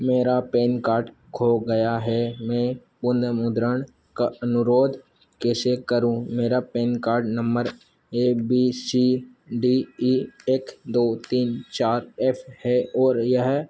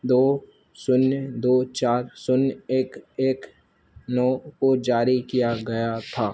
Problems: constant background noise